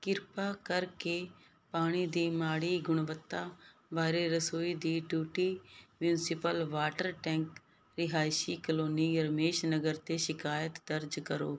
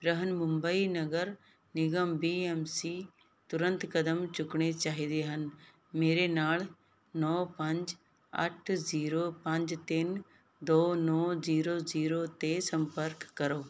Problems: background sounds at intervals